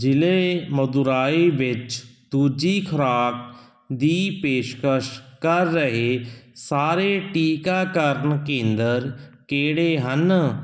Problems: none marked